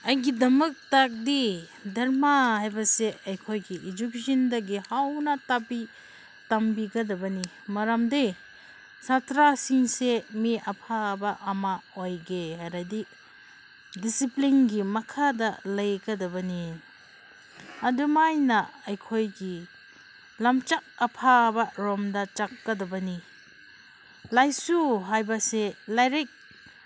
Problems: constant background noise